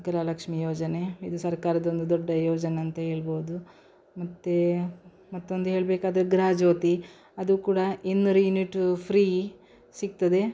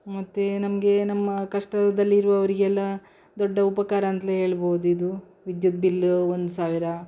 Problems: background sounds at intervals